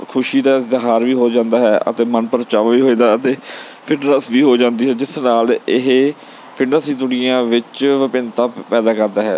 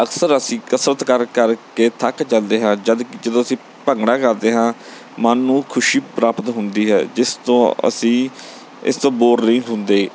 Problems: background sounds at intervals